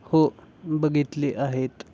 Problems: background sounds at intervals